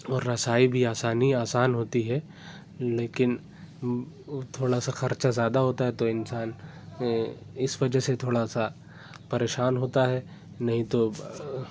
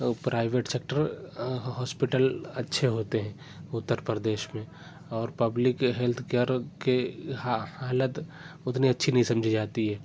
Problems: background sounds at intervals, continuous background conversations